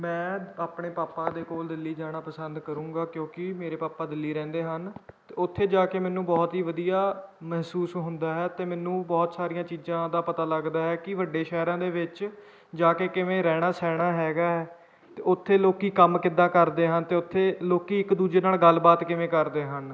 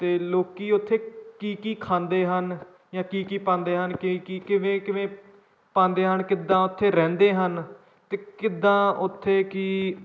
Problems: background sounds at intervals, background conversations at intervals